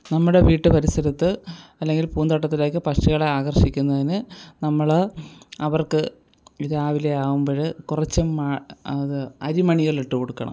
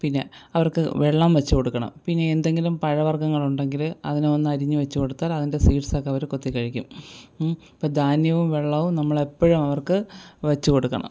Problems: background sounds at intervals